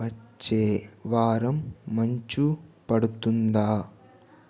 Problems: constant background noise